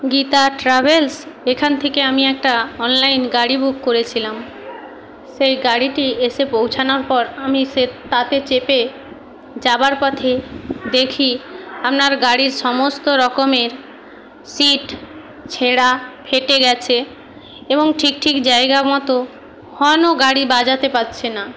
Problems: constant background noise